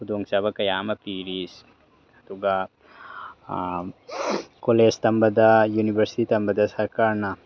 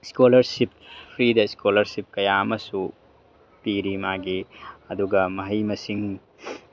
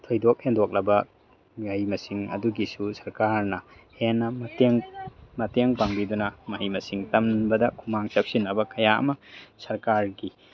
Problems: none marked